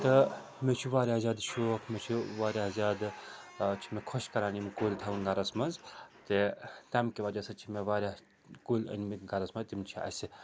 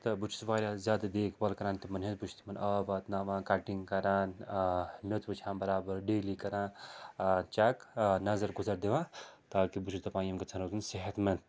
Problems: constant background noise